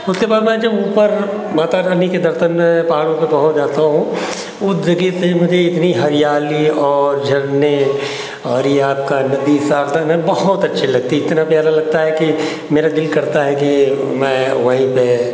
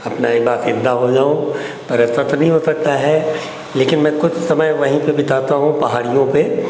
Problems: constant background noise